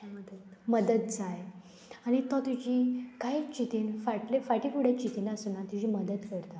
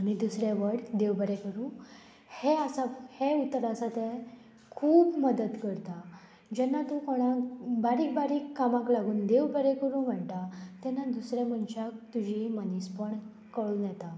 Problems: constant background noise, background conversations at intervals